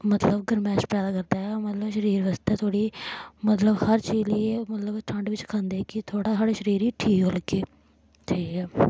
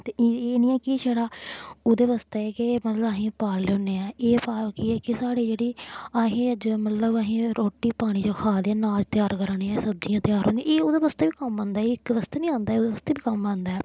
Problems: none marked